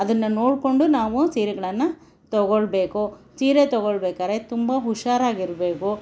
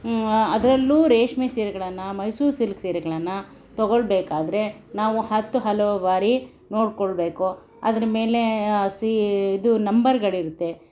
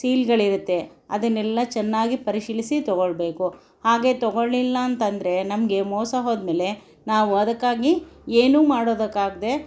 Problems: background sounds at intervals